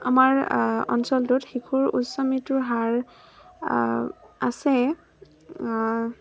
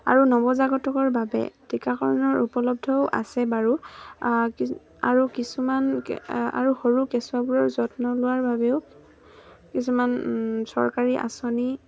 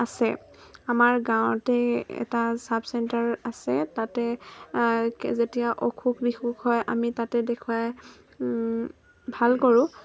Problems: constant background noise